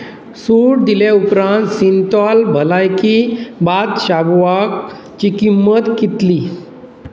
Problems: constant background noise